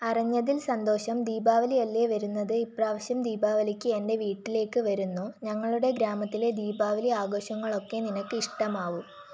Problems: none marked